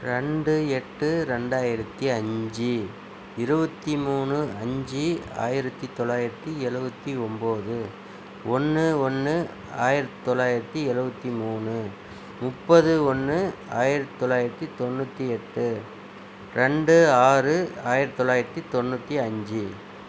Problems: none marked